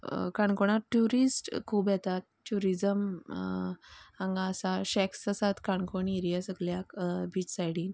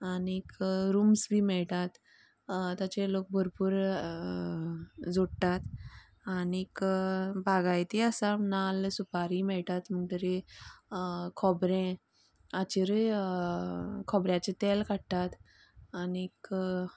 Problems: background conversations at intervals